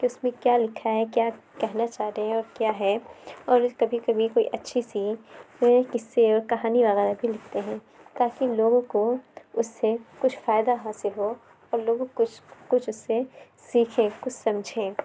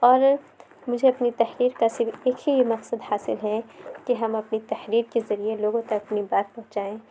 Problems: background sounds at intervals